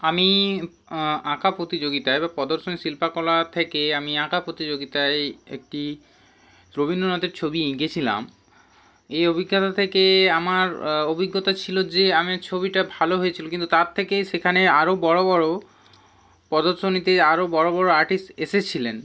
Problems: none marked